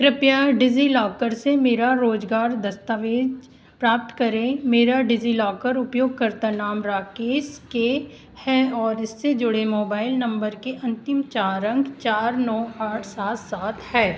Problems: constant background noise